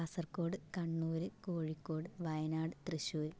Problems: low volume